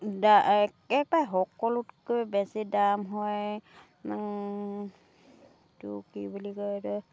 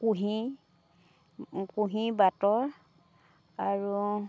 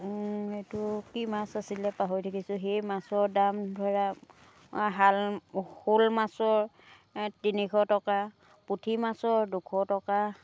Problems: none marked